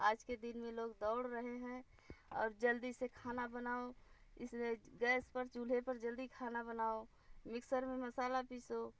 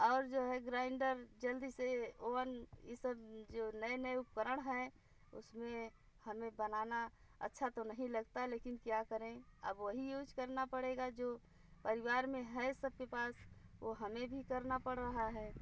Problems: none marked